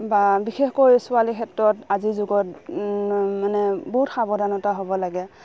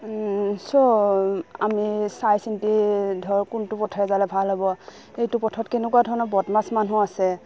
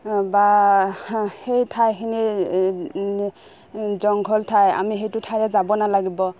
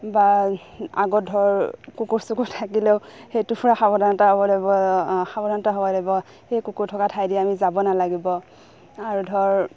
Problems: background sounds at intervals